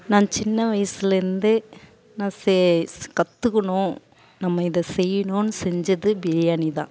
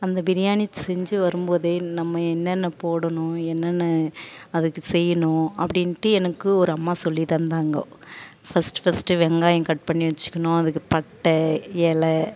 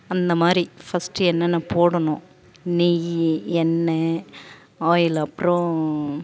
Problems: background sounds at intervals